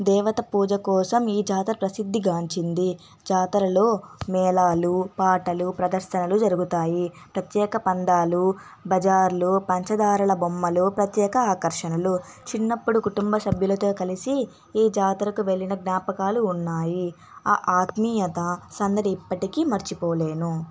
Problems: none marked